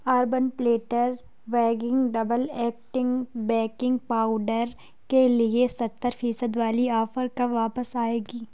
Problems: none marked